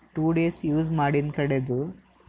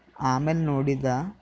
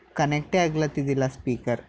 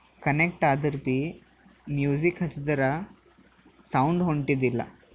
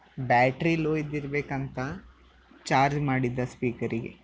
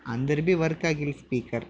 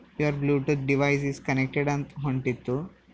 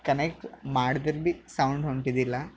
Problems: background sounds at intervals